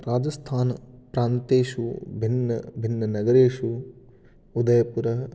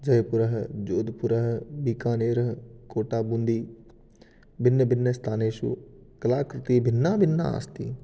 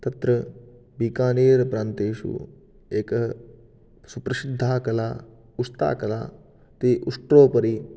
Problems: none marked